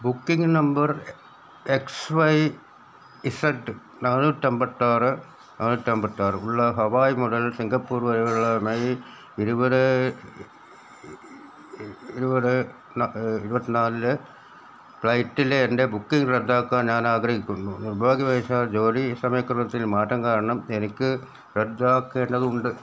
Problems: none marked